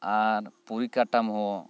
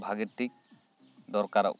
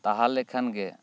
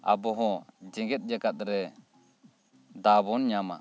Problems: background sounds at intervals